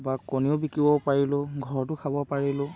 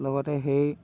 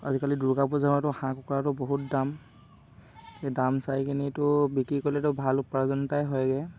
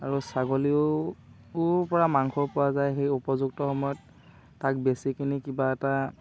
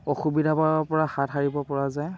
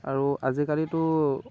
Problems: constant background noise